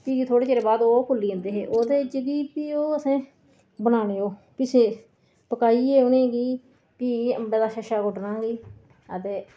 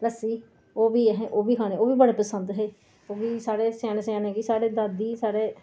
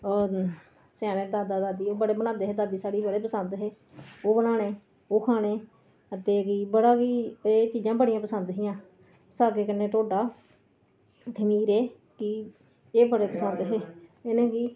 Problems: background sounds at intervals, low volume